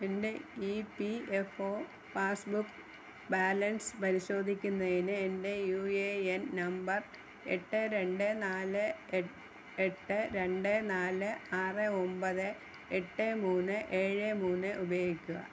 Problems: constant background noise